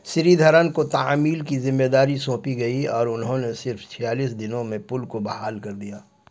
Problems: none marked